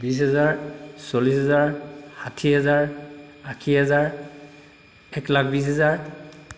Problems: none marked